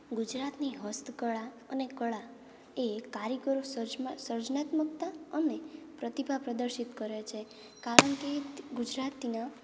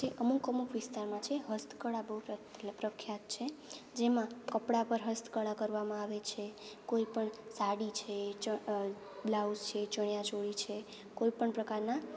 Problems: constant background noise, background conversations at intervals